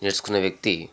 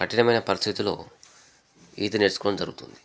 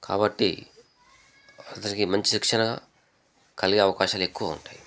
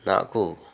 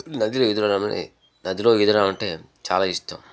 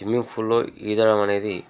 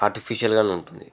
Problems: background sounds at intervals, background conversations at intervals